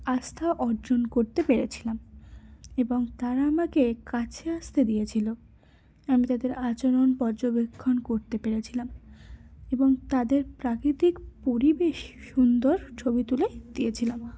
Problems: none marked